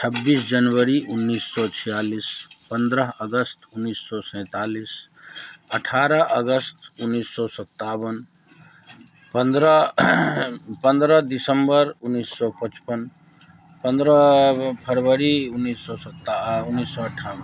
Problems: continuous background conversations